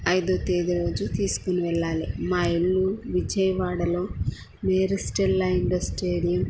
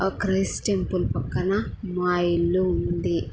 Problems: low volume